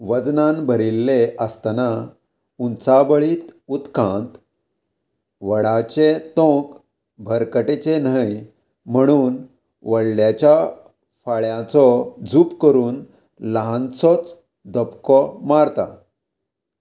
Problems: none marked